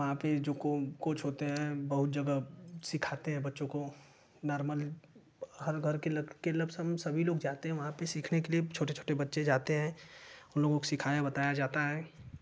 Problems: constant background noise